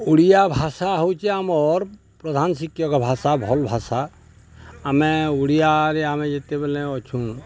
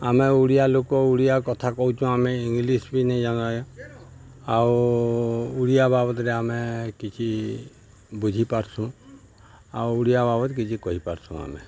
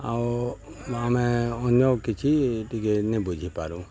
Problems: constant background noise